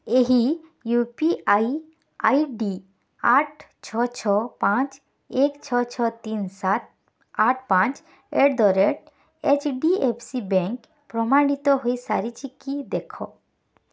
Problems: none marked